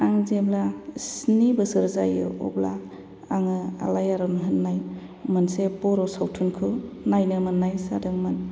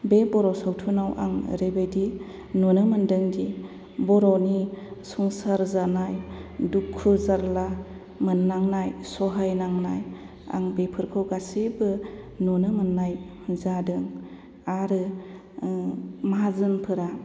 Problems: none marked